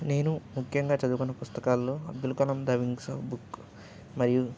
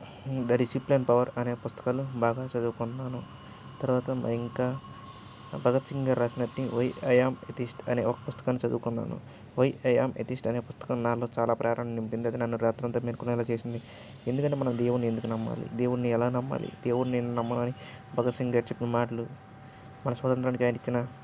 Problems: background sounds at intervals